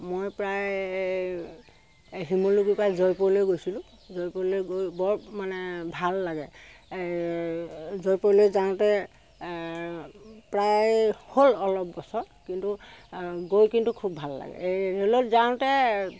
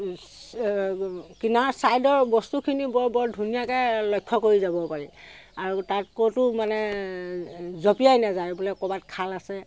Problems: background sounds at intervals